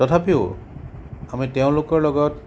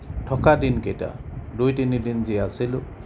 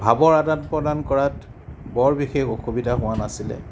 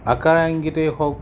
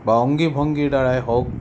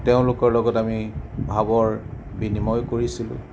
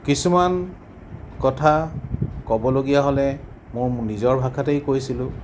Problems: none marked